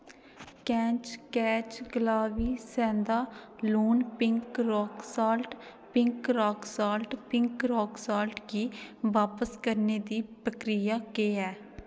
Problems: background sounds at intervals, echo